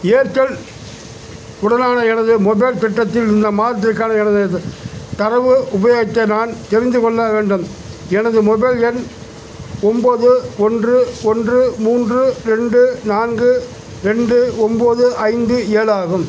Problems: none marked